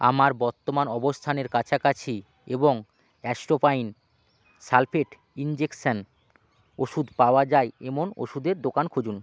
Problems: constant background noise